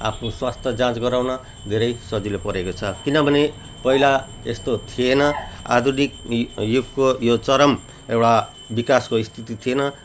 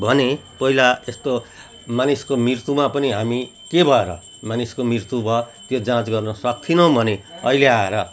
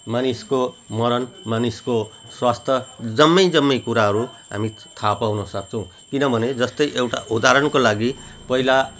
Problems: none marked